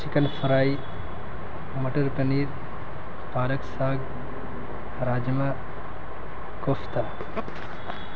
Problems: constant background noise